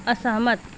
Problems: none marked